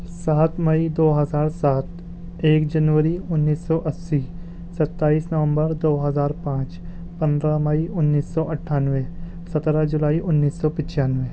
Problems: constant background noise